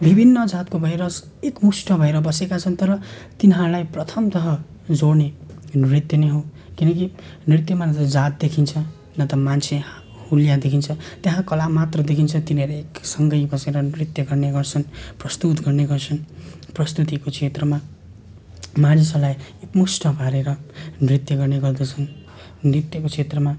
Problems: constant background noise